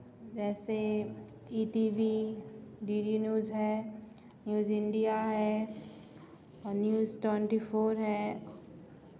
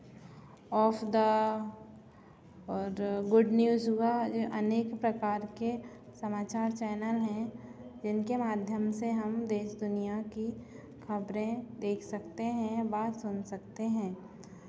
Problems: none marked